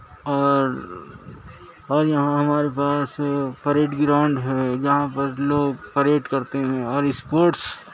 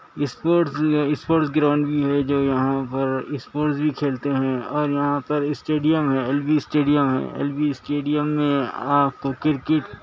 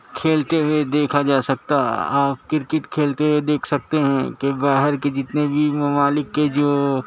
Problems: constant background noise, low volume